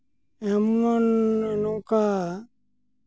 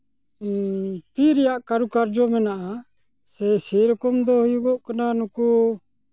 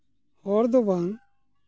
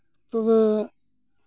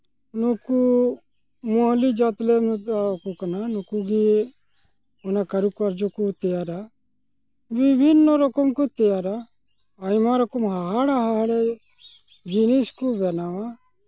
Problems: background sounds at intervals